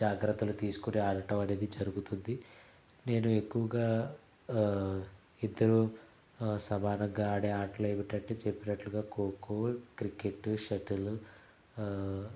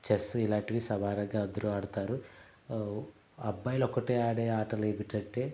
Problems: background sounds at intervals, low volume